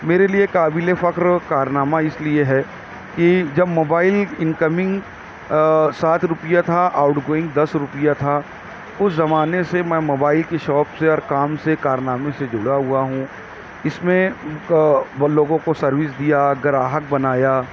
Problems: none marked